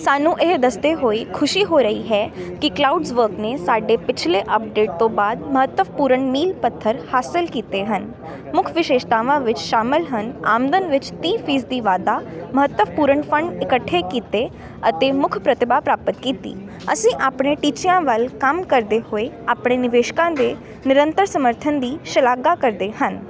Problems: constant background noise